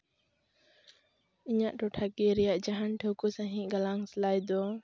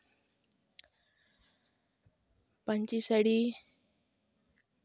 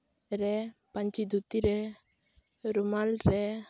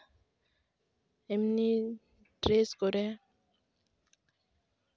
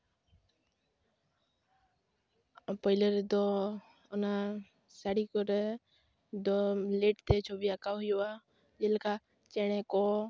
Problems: none marked